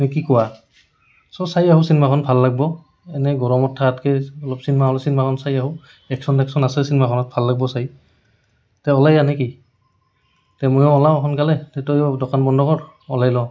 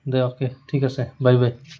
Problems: background sounds at intervals